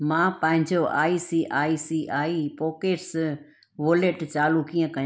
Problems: none marked